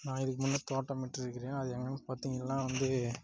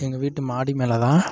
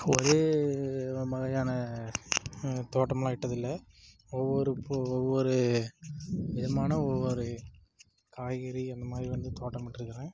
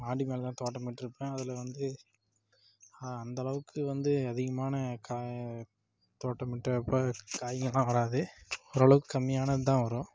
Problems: low volume